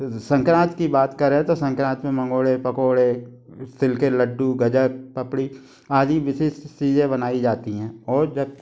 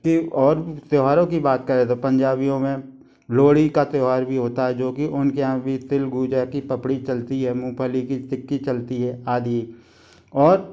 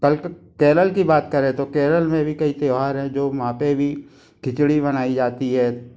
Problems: constant background noise